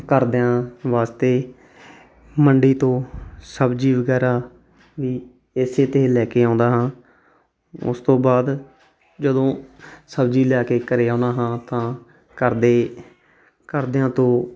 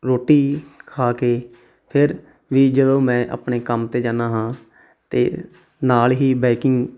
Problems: background sounds at intervals